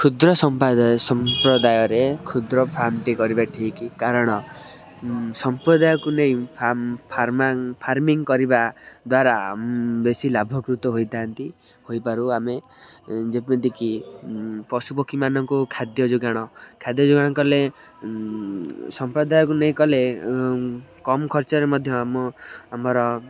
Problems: constant background noise, continuous background conversations